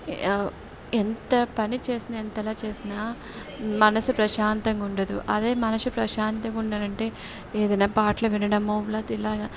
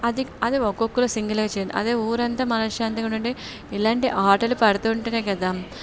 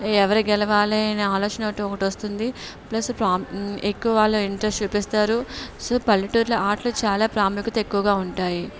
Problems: background conversations at intervals